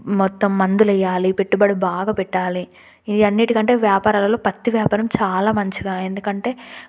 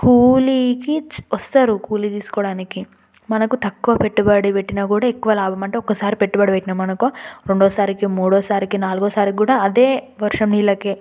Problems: none marked